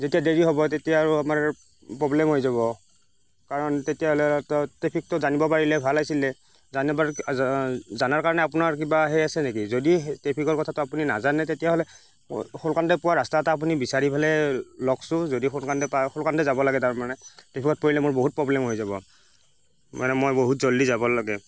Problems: constant background noise